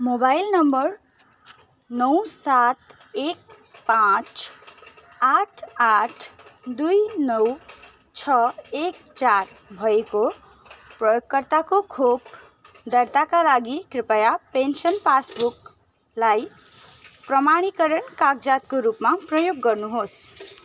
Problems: constant background noise